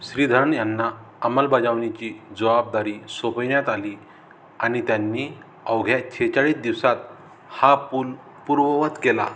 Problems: constant background noise